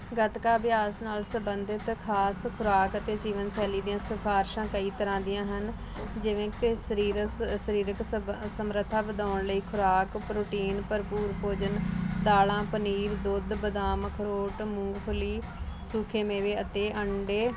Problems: none marked